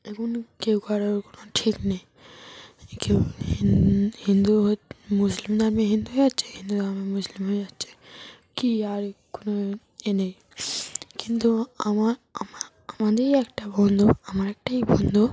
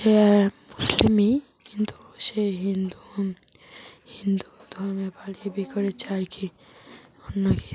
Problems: none marked